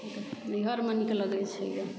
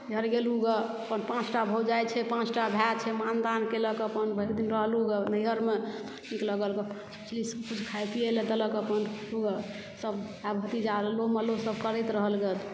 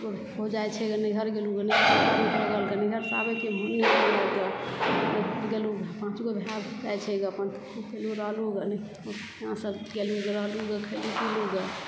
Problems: background sounds at intervals